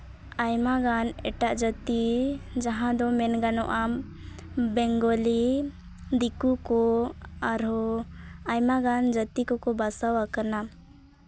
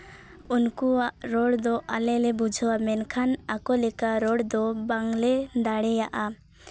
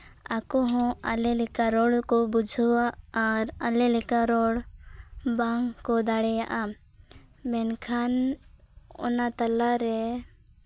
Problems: none marked